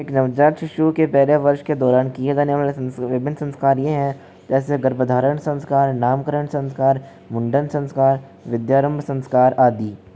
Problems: constant background noise